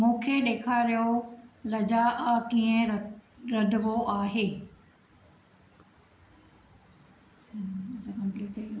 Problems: background sounds at intervals